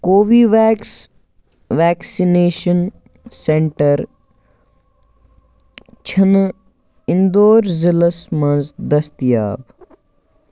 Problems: background conversations at intervals